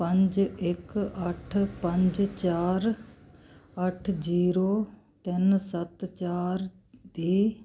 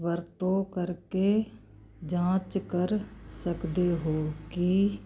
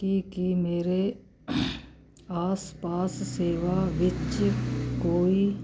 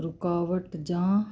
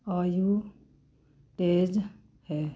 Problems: none marked